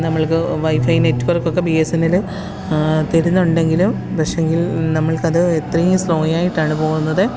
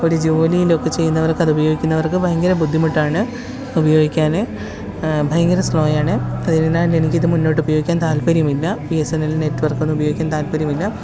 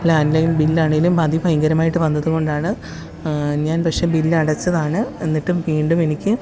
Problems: constant background noise